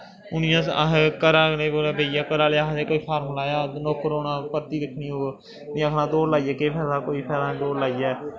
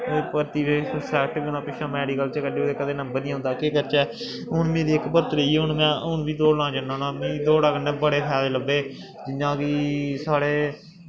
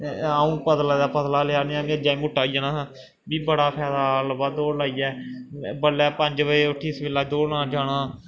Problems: background sounds at intervals, echo